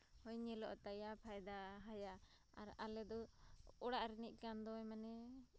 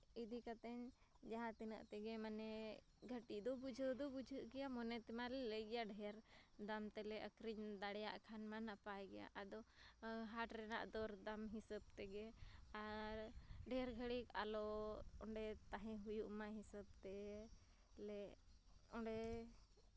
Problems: low volume